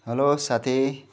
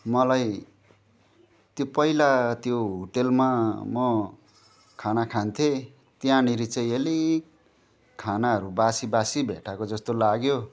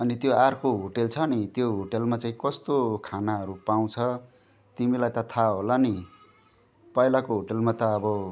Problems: none marked